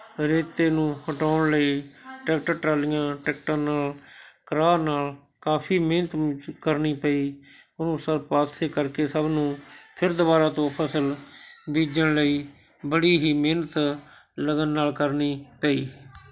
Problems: continuous background conversations